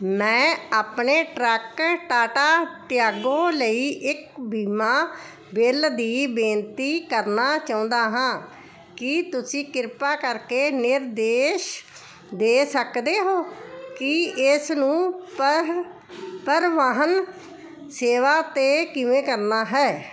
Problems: constant background noise